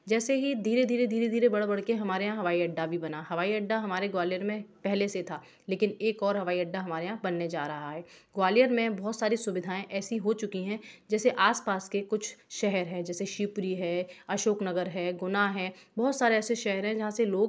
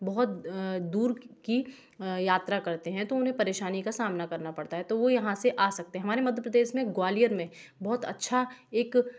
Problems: background sounds at intervals, background conversations at intervals